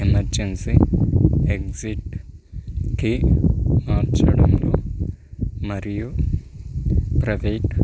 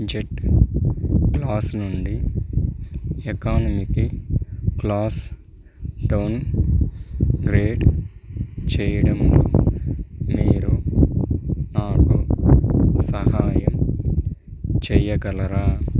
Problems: background sounds at intervals